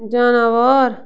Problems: background sounds at intervals